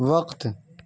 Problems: none marked